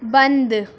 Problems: constant background noise